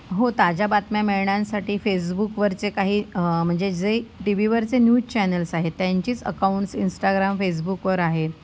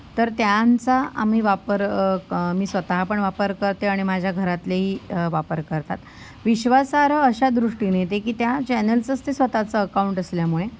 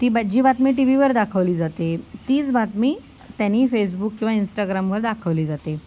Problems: none marked